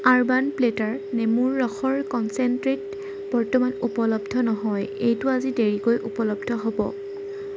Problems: none marked